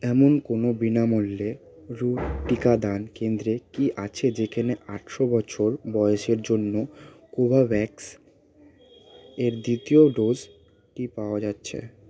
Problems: constant background noise, background conversations at intervals